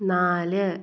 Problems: none marked